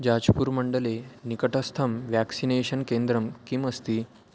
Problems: constant background noise